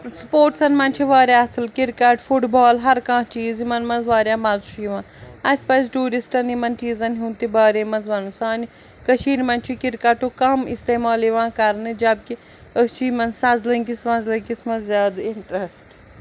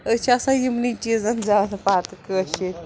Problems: constant background noise